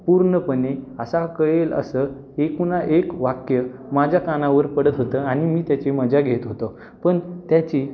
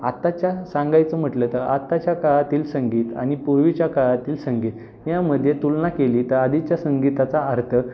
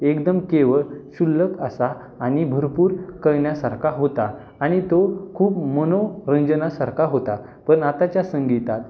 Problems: constant background noise, background conversations at intervals